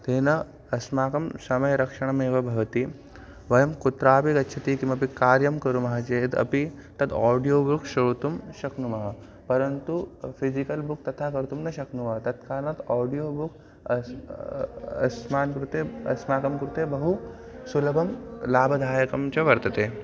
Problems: constant background noise